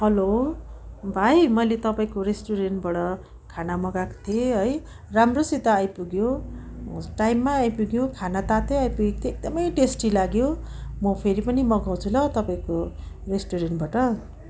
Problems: background sounds at intervals